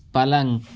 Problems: constant background noise